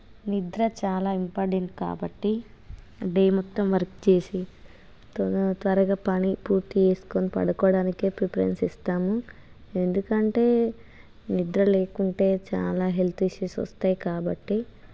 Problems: constant background noise